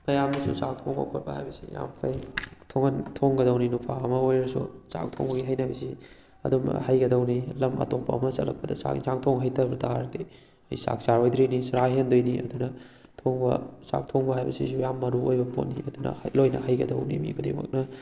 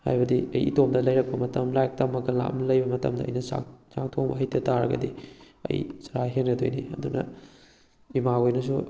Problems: background sounds at intervals